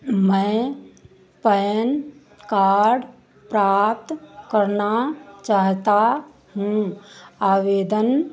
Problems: none marked